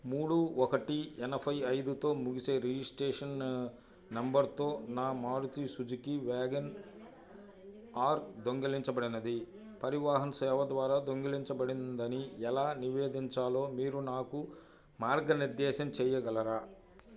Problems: low volume